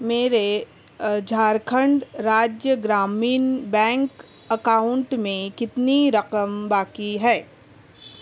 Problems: constant background noise